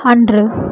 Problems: none marked